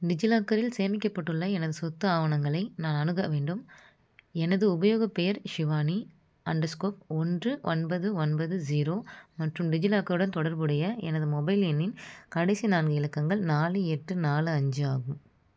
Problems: constant background noise